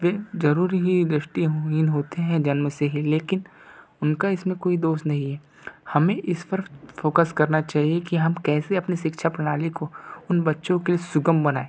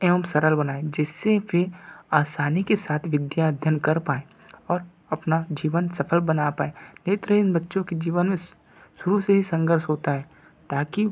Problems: none marked